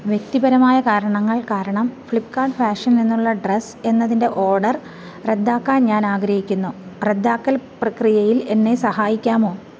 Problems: background sounds at intervals